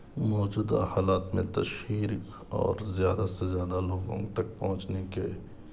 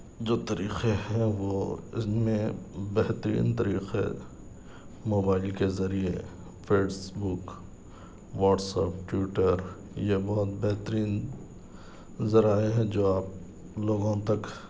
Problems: none marked